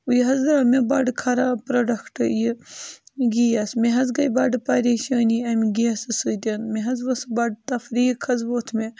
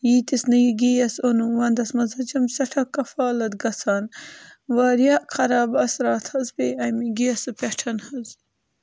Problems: constant background noise